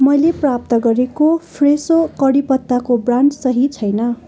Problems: constant background noise, continuous background conversations